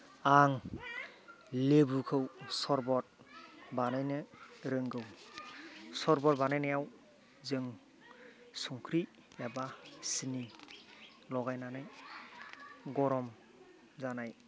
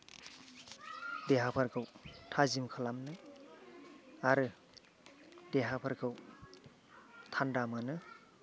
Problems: background sounds at intervals, background conversations at intervals